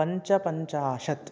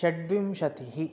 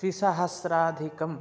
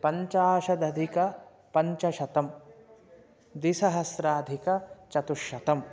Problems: background sounds at intervals